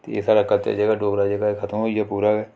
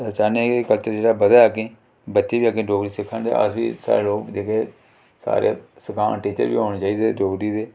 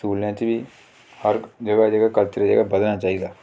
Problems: none marked